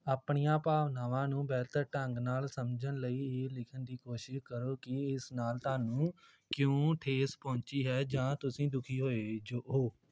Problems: background conversations at intervals